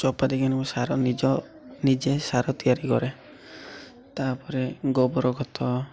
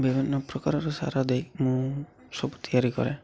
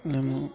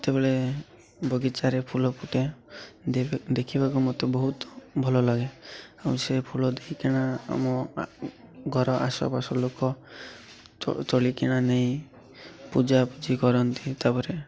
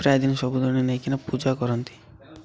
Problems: constant background noise, continuous background conversations